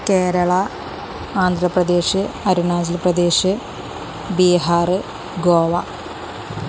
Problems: constant background noise